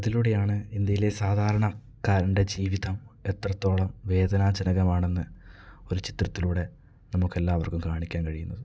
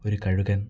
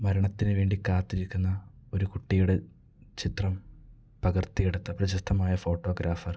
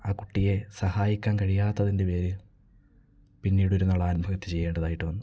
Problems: low volume